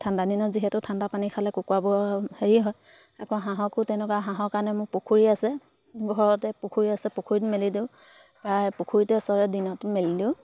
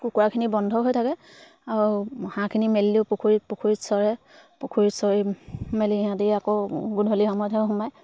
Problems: background sounds at intervals